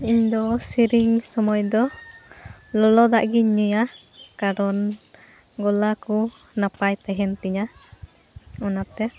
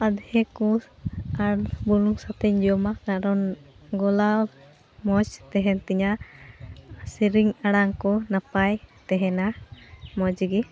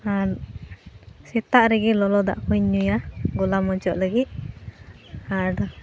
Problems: constant background noise